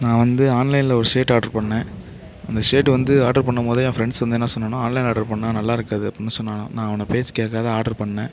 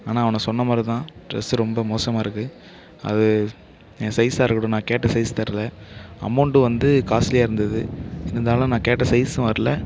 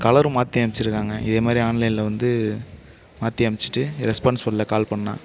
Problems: constant background noise